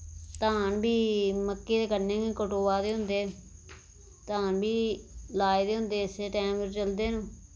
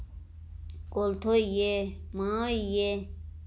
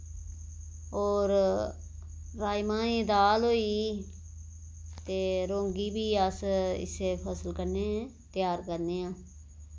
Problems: none marked